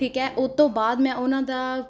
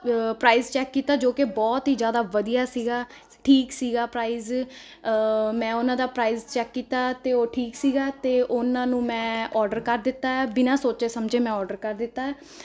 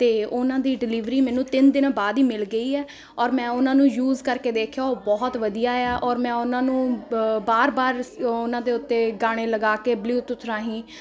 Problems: constant background noise